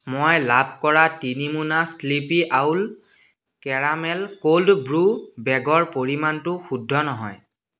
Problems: none marked